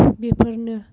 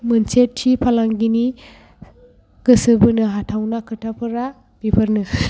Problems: background sounds at intervals